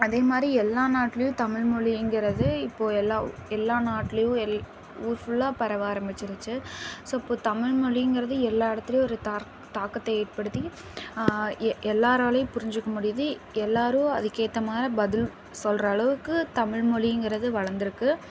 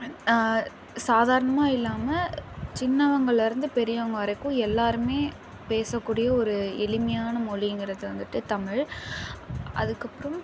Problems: constant background noise